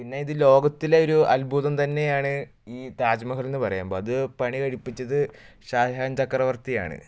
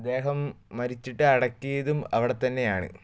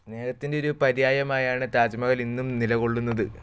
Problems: none marked